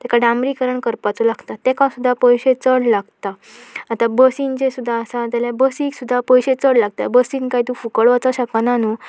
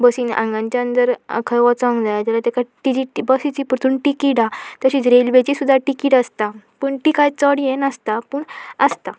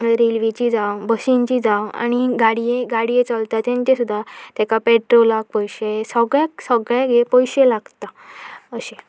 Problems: continuous background conversations